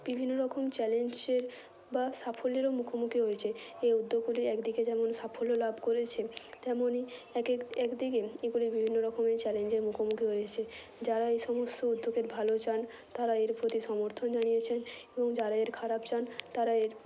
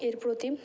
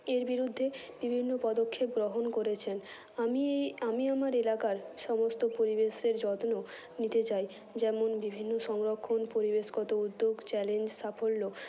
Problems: constant background noise